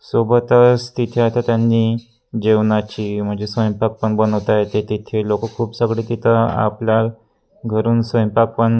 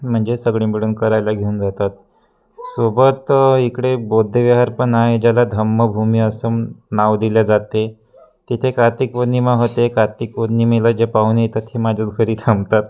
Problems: constant background noise, continuous background conversations